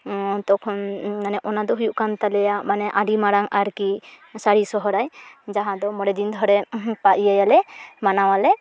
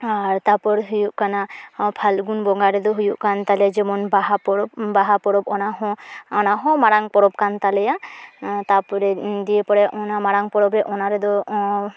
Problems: none marked